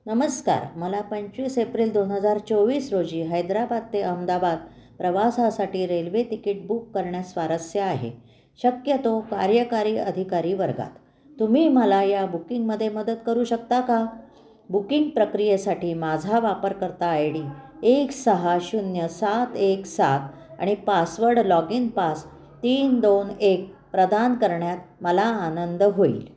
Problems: constant background noise, continuous background conversations